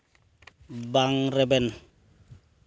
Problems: none marked